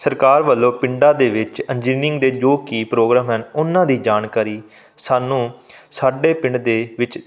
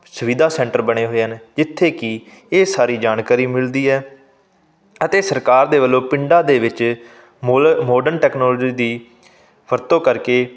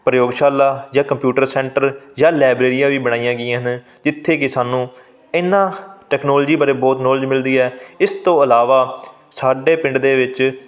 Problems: background sounds at intervals